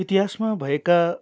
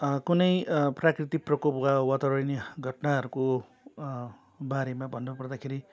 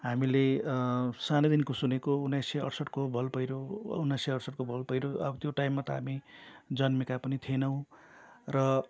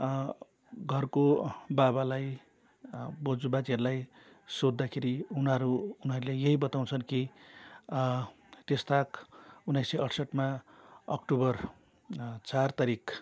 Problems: none marked